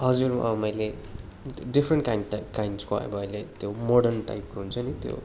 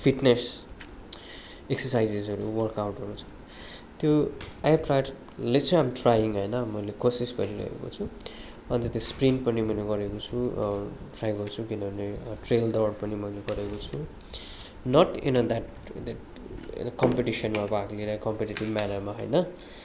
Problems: constant background noise, continuous background conversations